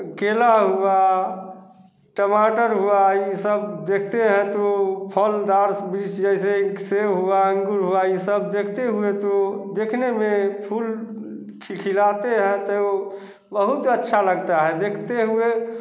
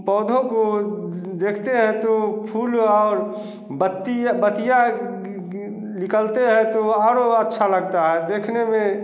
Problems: none marked